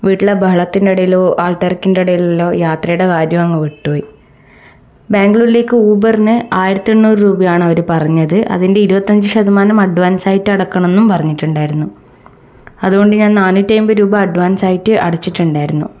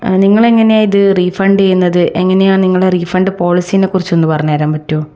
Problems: none marked